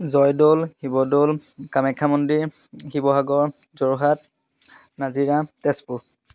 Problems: none marked